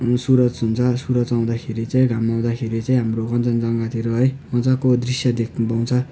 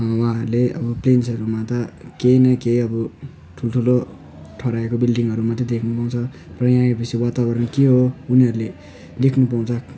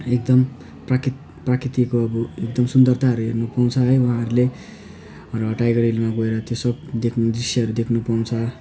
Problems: none marked